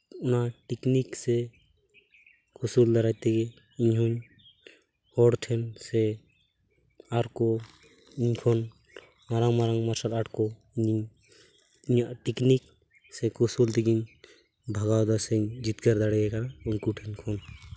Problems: constant background noise